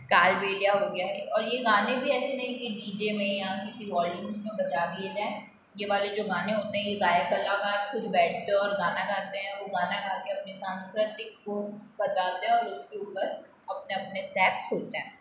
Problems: background sounds at intervals, low volume